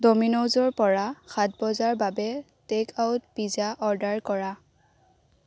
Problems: none marked